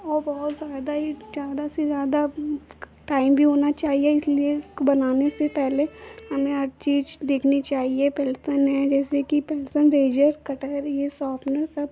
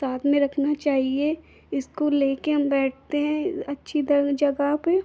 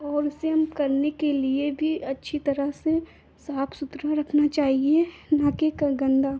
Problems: constant background noise